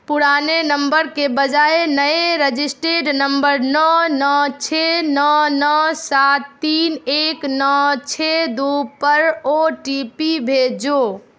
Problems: none marked